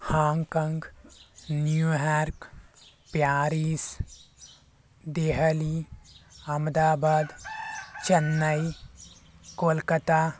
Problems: background sounds at intervals